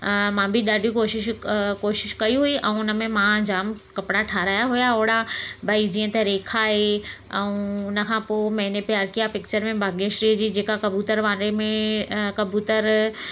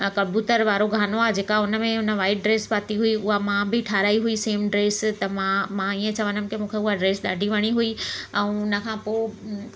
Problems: constant background noise